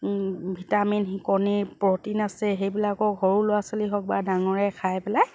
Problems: background sounds at intervals